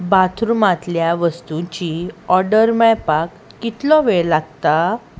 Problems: constant background noise